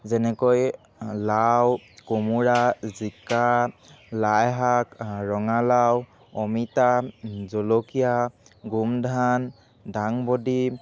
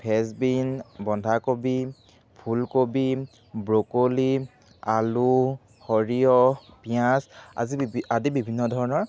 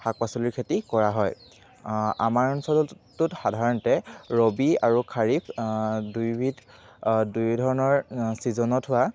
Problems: background sounds at intervals